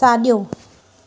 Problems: constant background noise